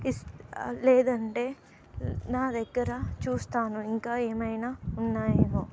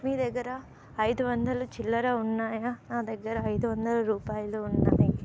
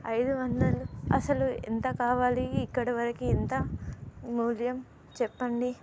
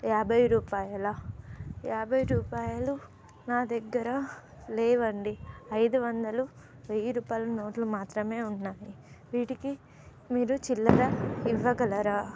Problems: none marked